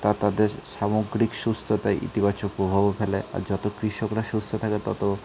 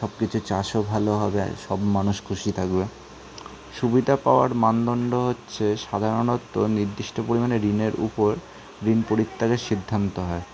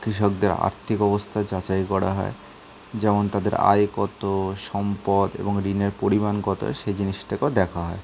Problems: constant background noise